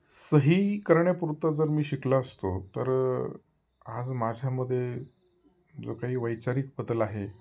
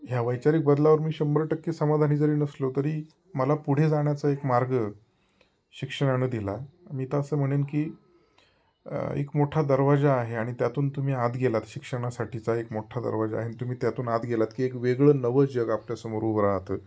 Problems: background sounds at intervals